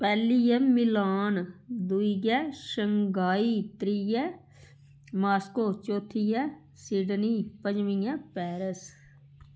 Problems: none marked